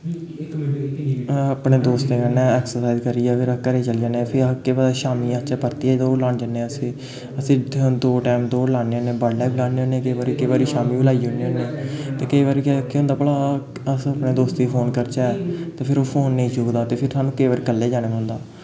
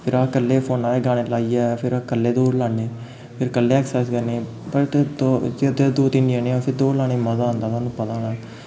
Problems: constant background noise, background conversations at intervals